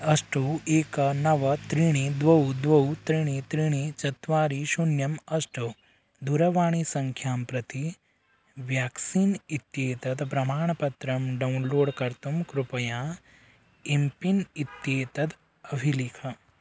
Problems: background sounds at intervals